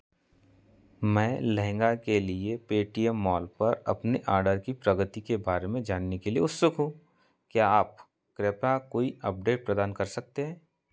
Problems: background sounds at intervals